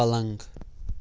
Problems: constant background noise